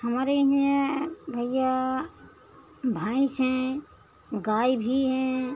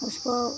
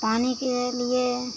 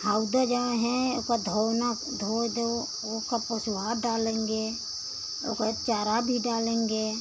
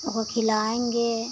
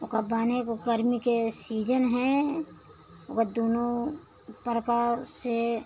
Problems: constant background noise